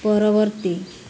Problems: constant background noise